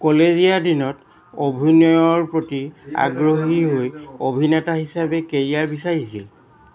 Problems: constant background noise, background conversations at intervals